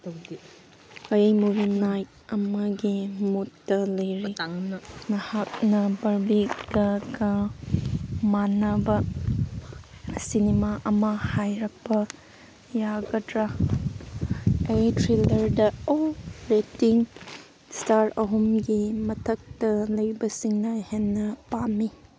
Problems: none marked